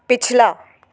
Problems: constant background noise, echo